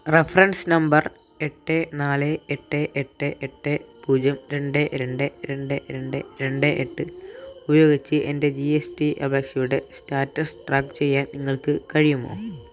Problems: none marked